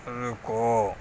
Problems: constant background noise